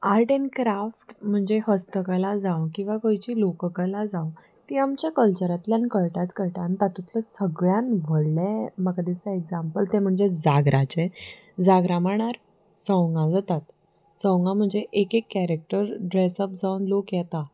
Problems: background sounds at intervals